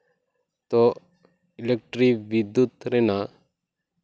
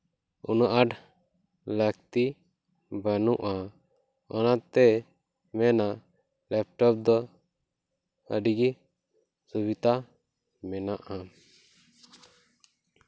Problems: background sounds at intervals